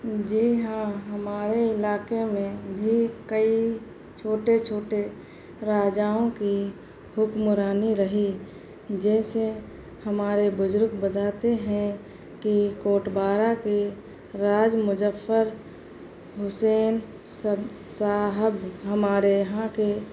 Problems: constant background noise